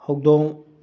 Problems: low volume